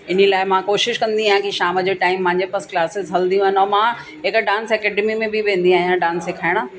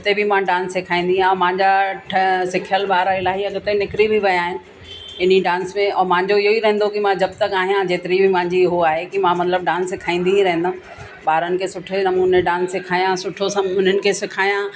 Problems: constant background noise, echo